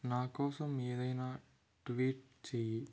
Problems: low volume